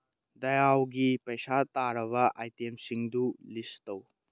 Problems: none marked